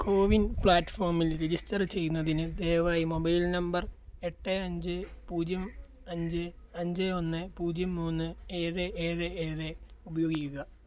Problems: low volume